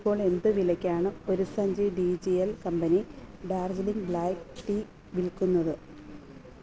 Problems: none marked